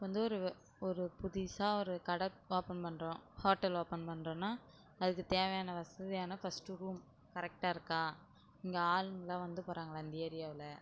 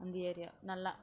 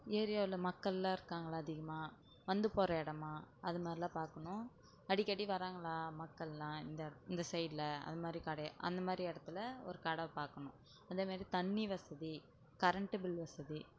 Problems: none marked